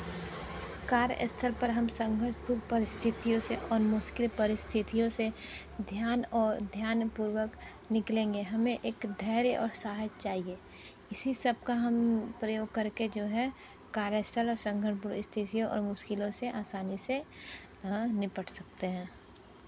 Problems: constant background noise